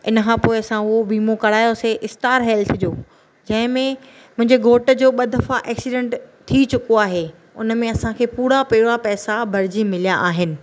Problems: none marked